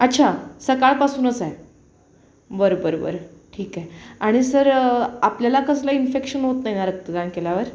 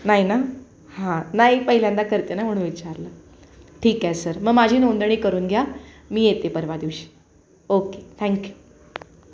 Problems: constant background noise